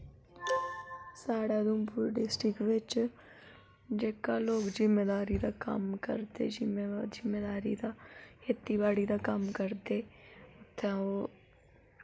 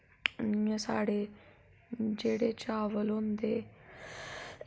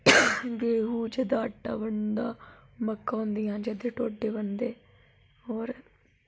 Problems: none marked